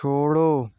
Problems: none marked